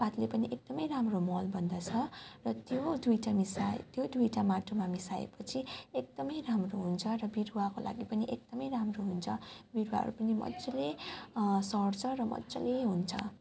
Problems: background conversations at intervals